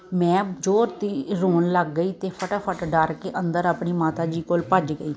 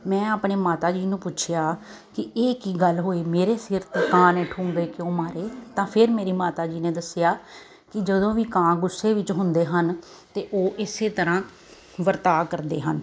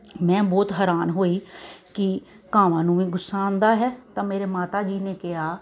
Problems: none marked